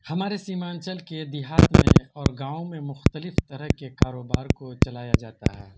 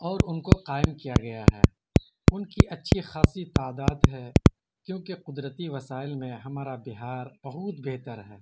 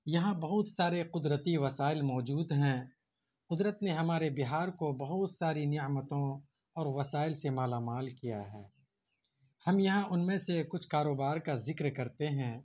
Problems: constant background noise